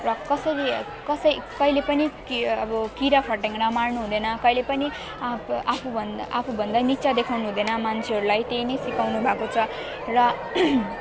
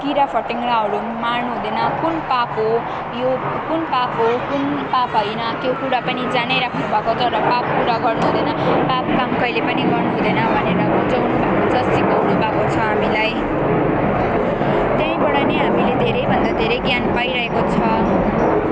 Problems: constant background noise